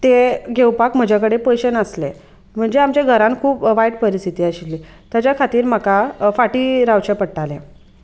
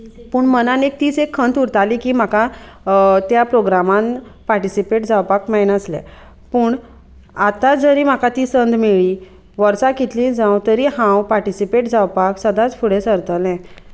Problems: constant background noise, background conversations at intervals